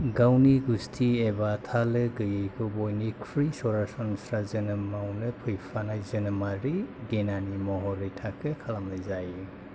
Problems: none marked